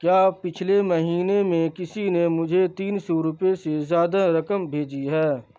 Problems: constant background noise